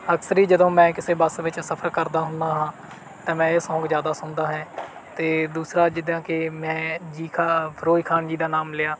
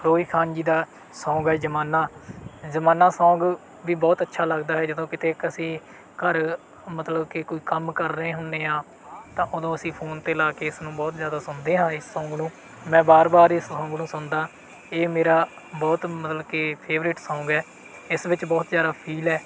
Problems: background sounds at intervals